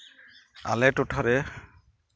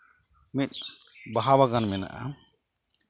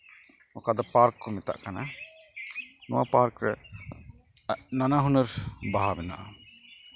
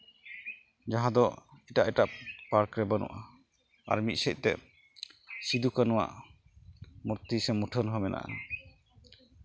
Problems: constant background noise